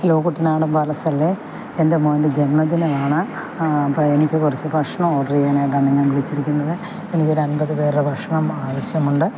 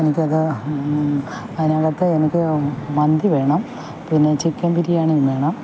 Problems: constant background noise